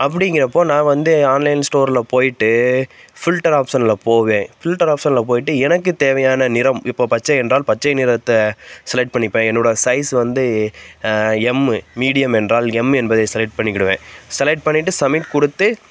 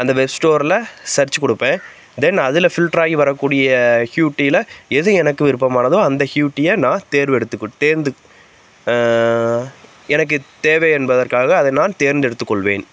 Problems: constant background noise